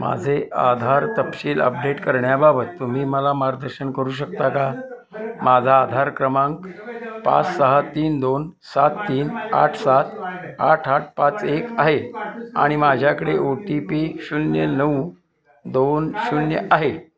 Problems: constant background noise, continuous background conversations